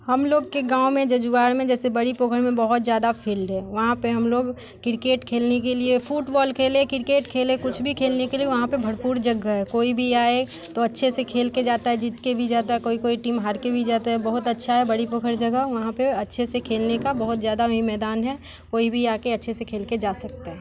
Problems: none marked